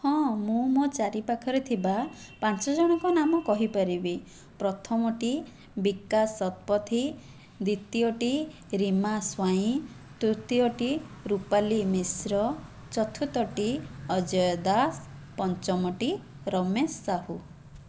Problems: background sounds at intervals